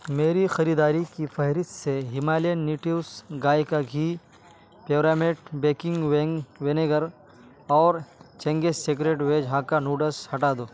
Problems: constant background noise